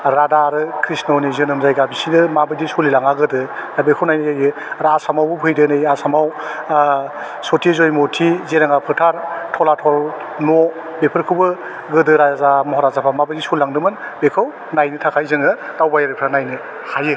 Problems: none marked